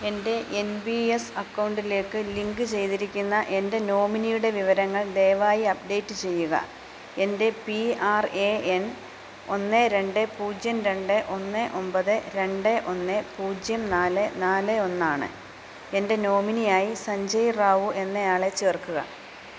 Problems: constant background noise